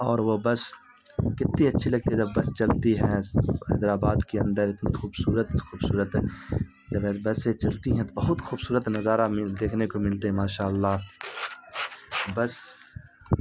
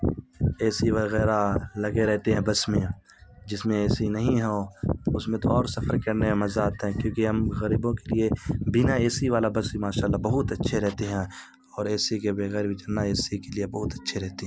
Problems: constant background noise